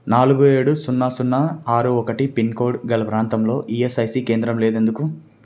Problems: constant background noise